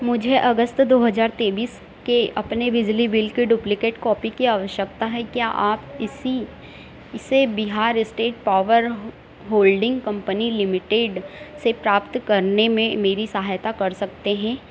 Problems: constant background noise, background conversations at intervals